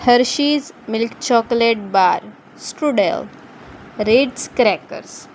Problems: constant background noise